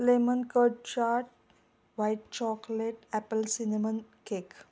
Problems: none marked